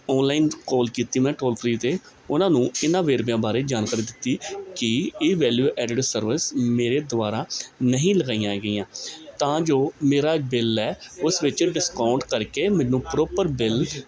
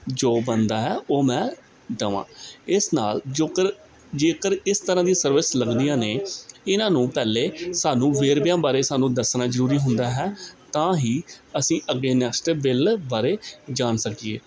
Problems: continuous background conversations